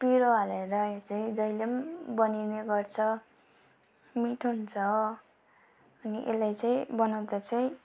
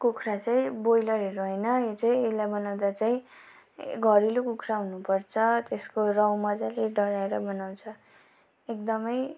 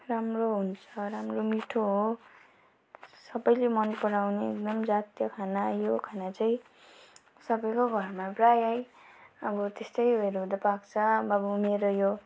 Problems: constant background noise